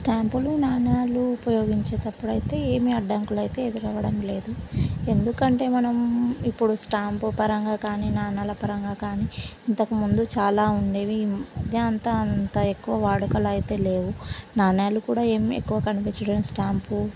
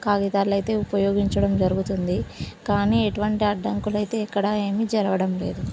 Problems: constant background noise